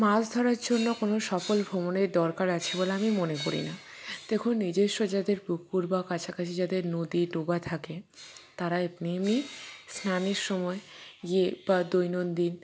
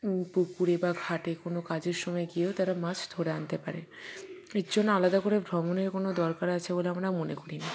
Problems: background sounds at intervals